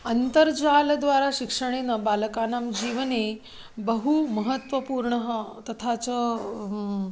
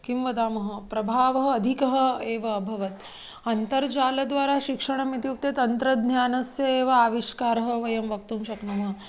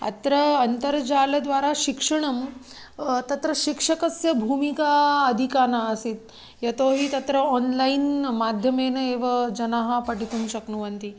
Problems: none marked